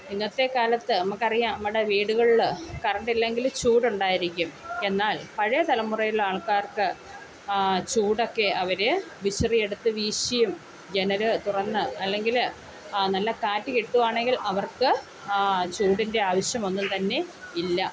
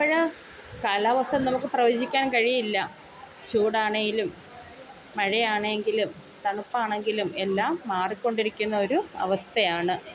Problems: background sounds at intervals